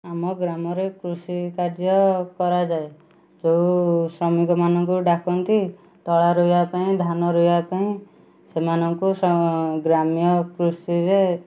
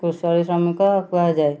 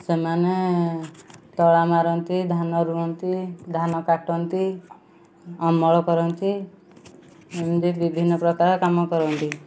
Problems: low volume